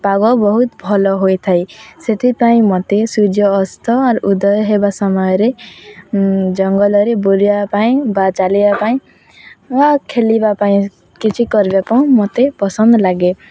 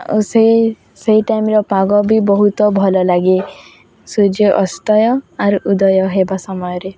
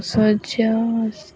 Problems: none marked